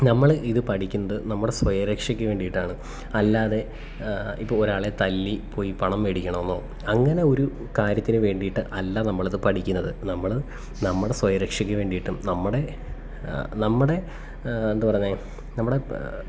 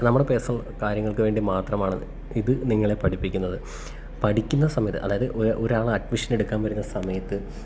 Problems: none marked